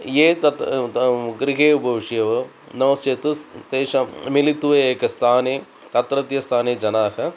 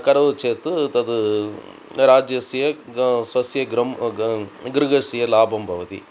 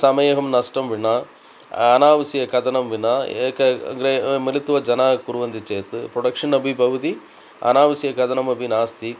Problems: none marked